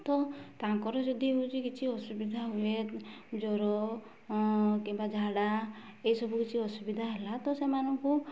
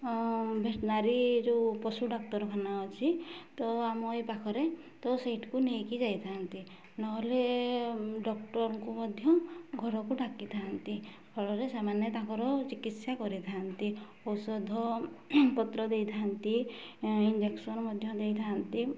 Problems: low volume